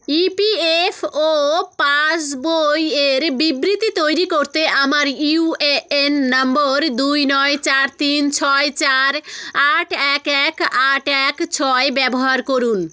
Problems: none marked